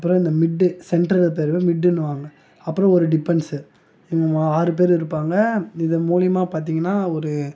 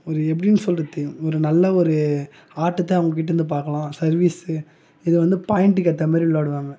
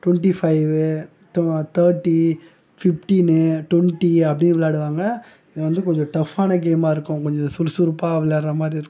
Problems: none marked